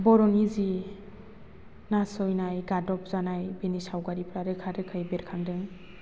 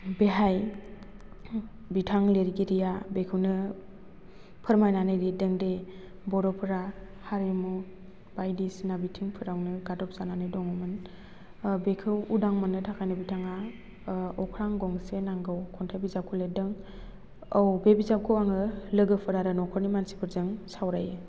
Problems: none marked